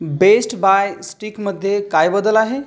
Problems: none marked